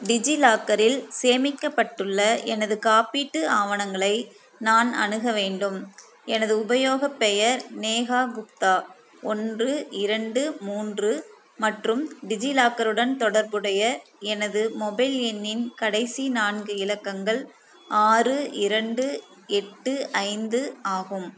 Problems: constant background noise